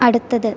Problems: none marked